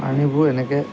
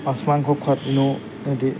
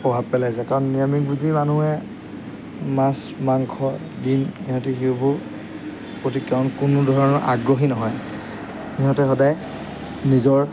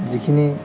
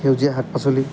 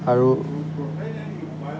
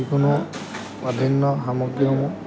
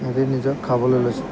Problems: background sounds at intervals